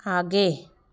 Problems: constant background noise, background conversations at intervals